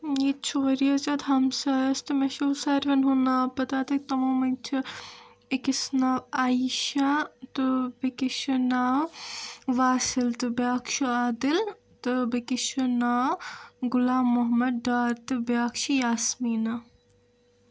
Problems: none marked